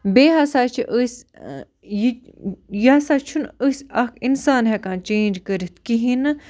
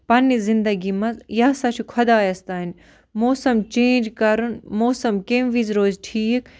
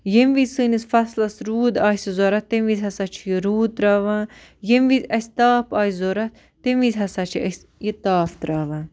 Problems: constant background noise